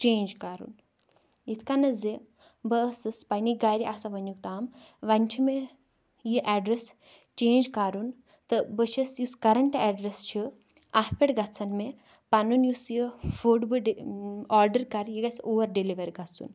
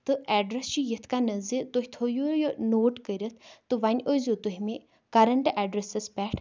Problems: background sounds at intervals